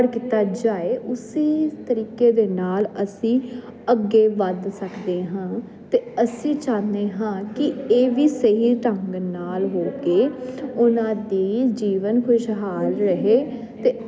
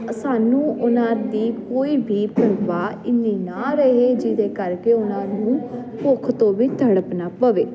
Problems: constant background noise